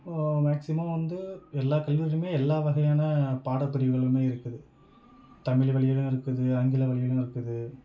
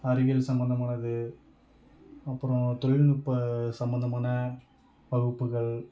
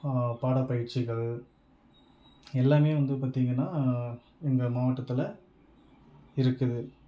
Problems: background sounds at intervals